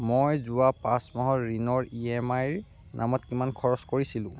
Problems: constant background noise, low volume